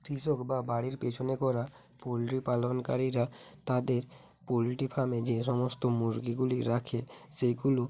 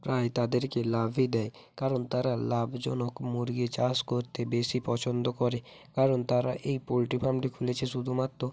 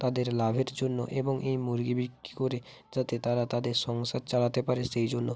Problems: none marked